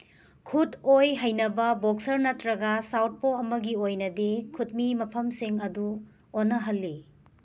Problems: none marked